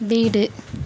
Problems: constant background noise